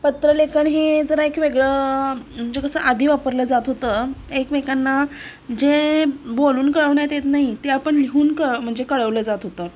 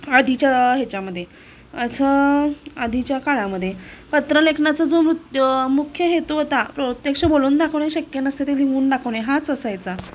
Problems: none marked